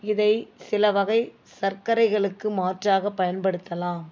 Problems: background sounds at intervals